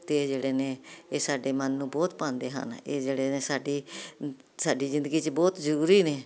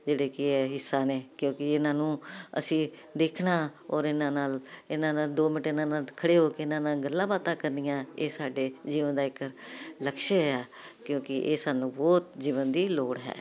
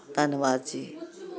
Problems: continuous background conversations